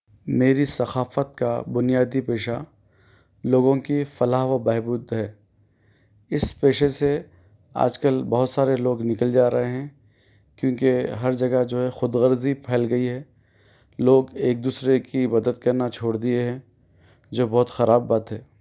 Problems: none marked